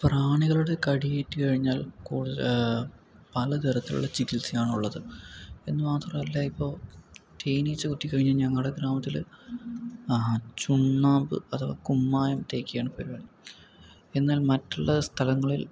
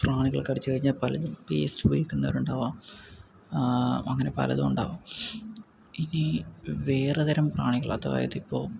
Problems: low volume